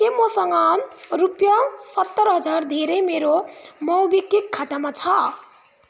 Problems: none marked